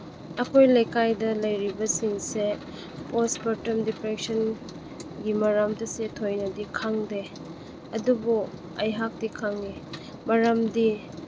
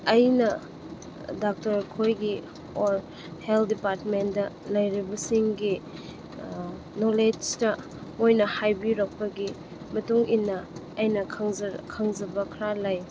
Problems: constant background noise